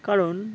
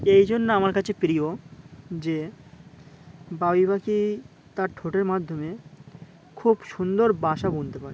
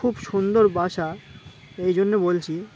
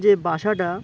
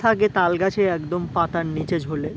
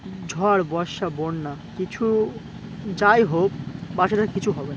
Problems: constant background noise, background conversations at intervals